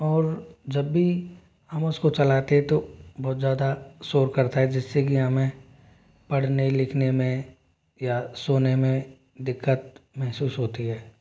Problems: none marked